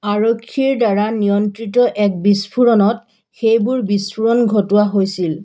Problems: background sounds at intervals